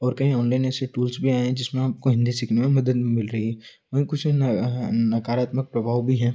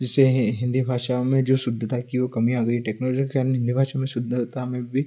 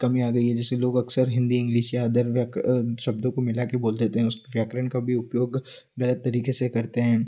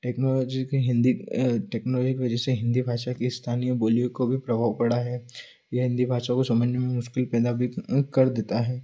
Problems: constant background noise